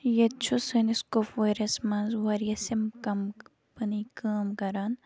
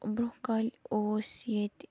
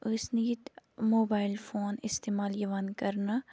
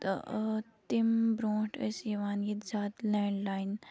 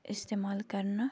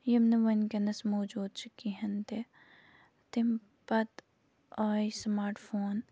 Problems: none marked